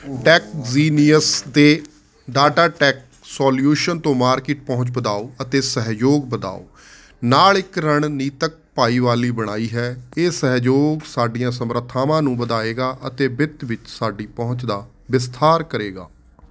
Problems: constant background noise